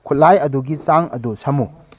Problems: background sounds at intervals